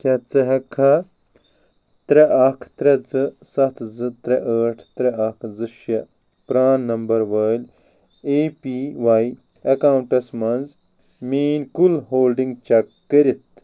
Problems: none marked